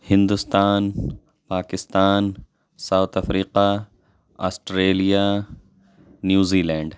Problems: none marked